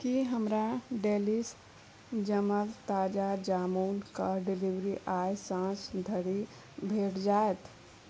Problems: background sounds at intervals, low volume